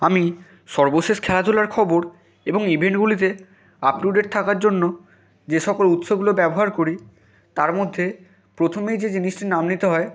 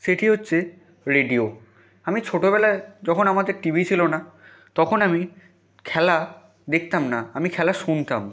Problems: none marked